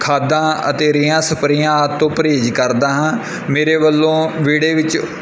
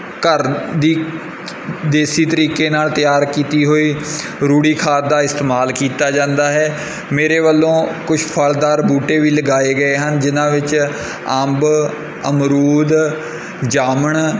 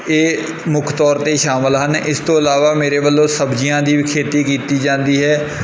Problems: background sounds at intervals